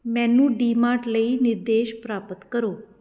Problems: none marked